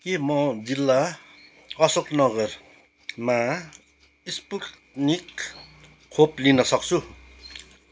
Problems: background sounds at intervals